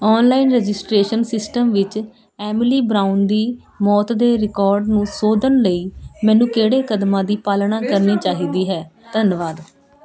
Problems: none marked